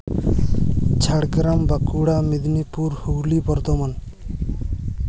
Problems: constant background noise